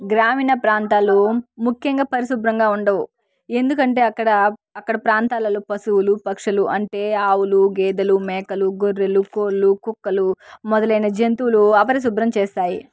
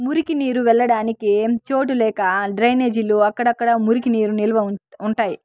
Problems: background sounds at intervals, background conversations at intervals